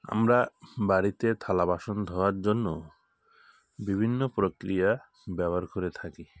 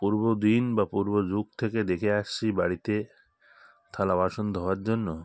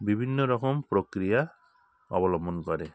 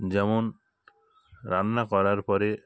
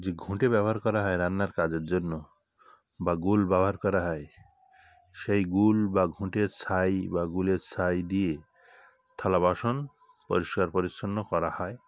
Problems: constant background noise